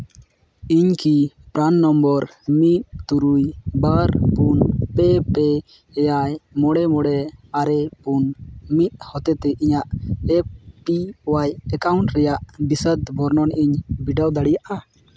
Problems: background sounds at intervals